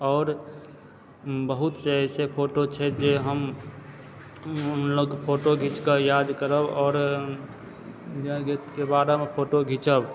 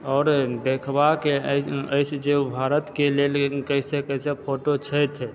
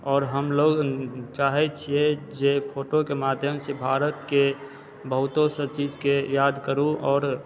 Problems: background sounds at intervals, background conversations at intervals